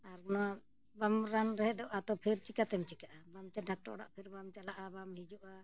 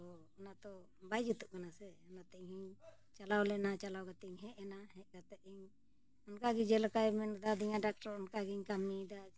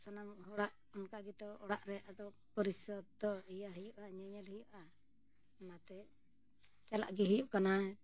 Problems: none marked